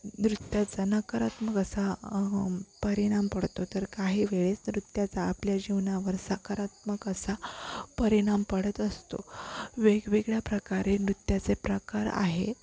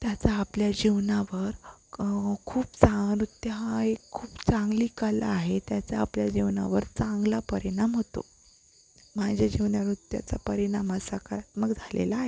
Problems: constant background noise